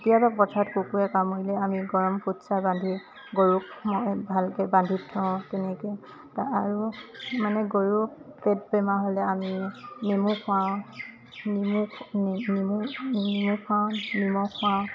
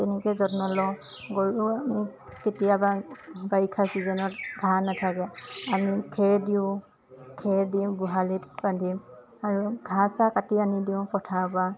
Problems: constant background noise, background conversations at intervals